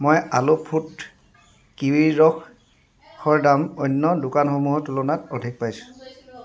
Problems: background sounds at intervals